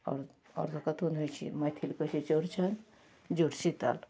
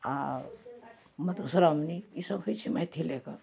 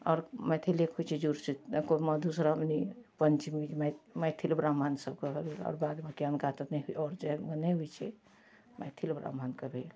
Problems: none marked